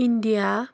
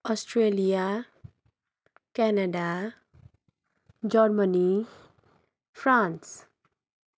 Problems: none marked